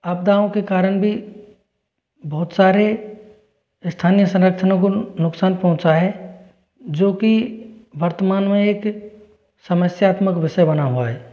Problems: none marked